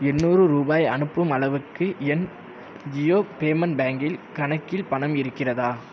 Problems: constant background noise